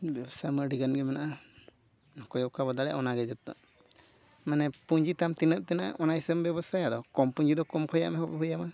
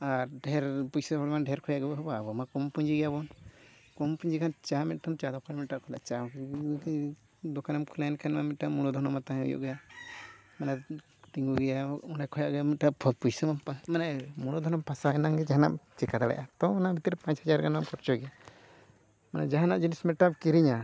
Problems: none marked